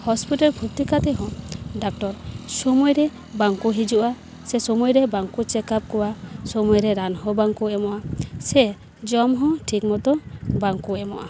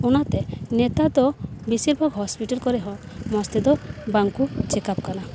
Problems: constant background noise, background conversations at intervals